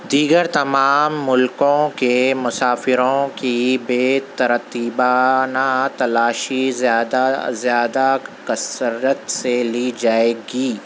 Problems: none marked